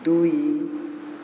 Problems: constant background noise